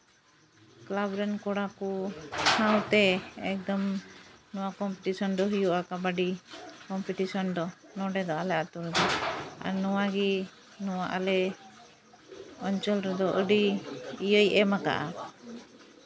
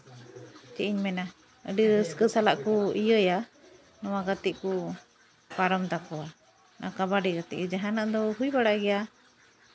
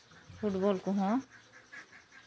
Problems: constant background noise, background conversations at intervals